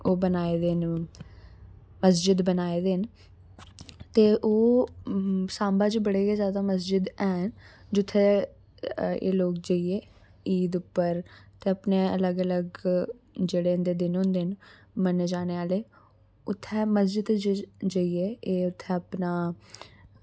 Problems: none marked